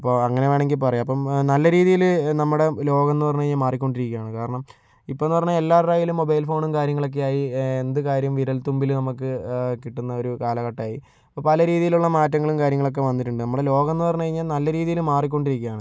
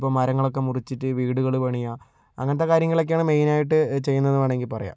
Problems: none marked